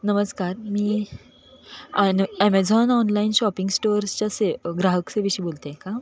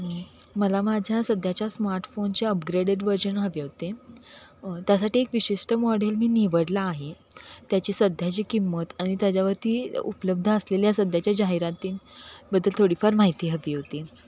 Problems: none marked